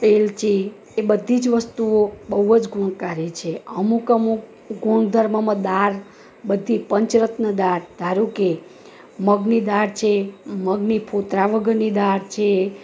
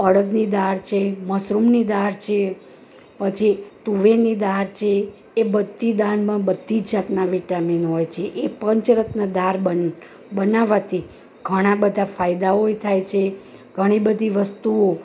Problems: none marked